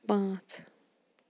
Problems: background sounds at intervals